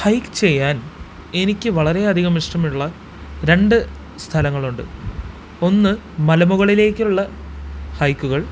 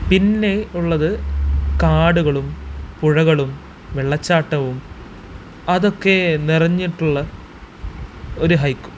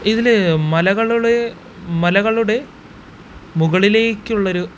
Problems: constant background noise